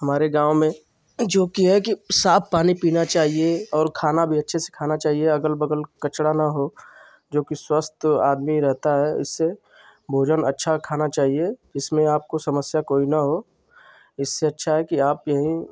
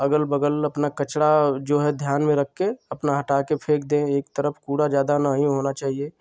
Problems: constant background noise